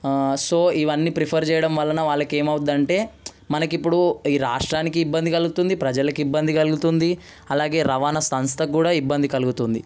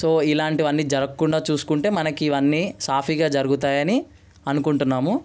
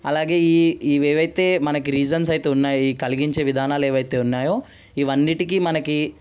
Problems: background sounds at intervals